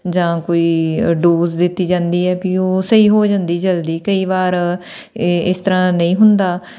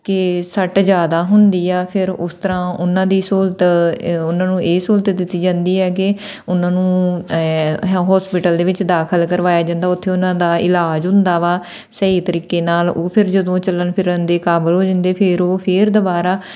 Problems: none marked